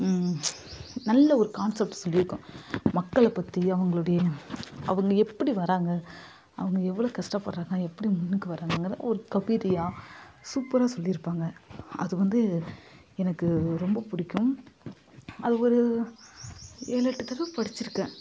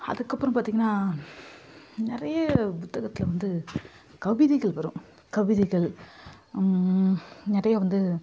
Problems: constant background noise